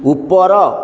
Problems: none marked